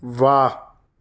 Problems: constant background noise